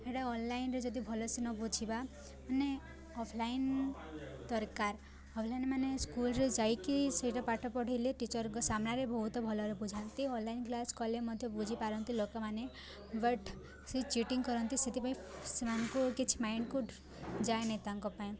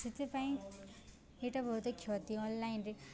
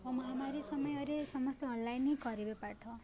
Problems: constant background noise, continuous background conversations